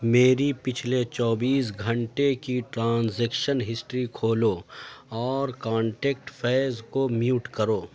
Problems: none marked